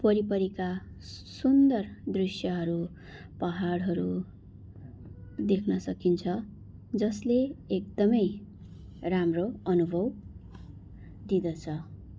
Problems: none marked